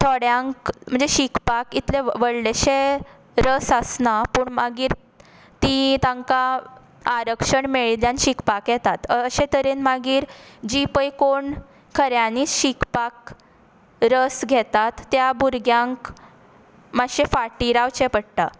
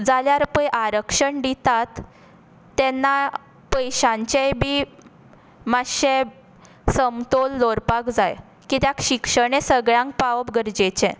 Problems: constant background noise